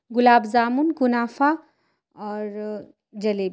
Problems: none marked